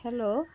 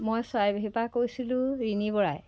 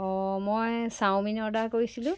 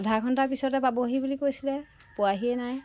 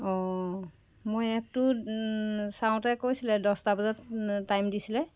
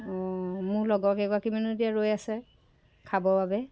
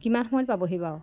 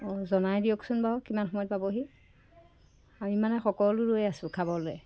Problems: none marked